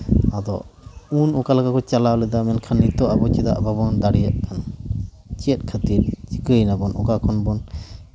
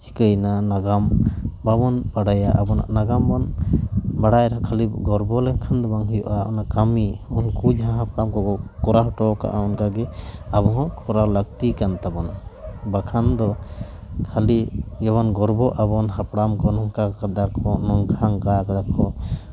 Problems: background sounds at intervals